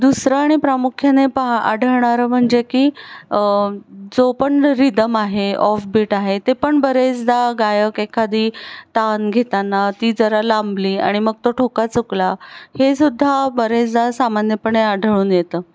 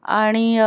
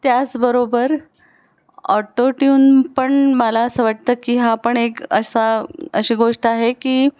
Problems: none marked